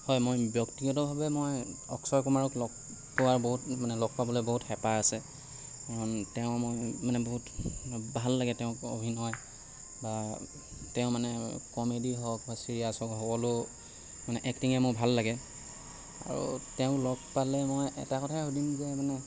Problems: none marked